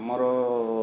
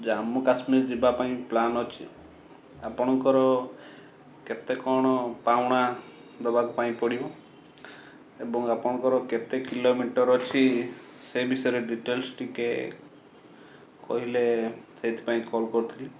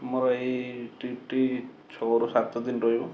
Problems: background sounds at intervals